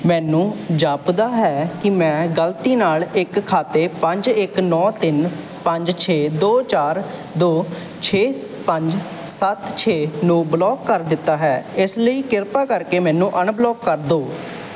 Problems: none marked